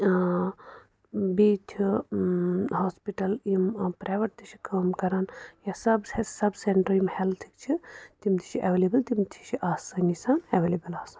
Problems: background sounds at intervals